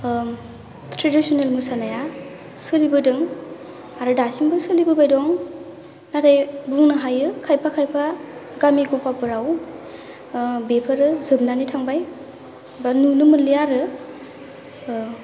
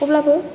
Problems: low volume